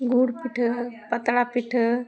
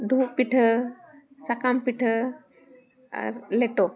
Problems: continuous background conversations